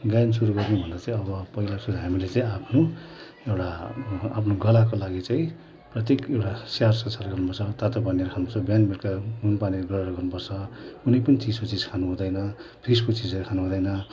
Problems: constant background noise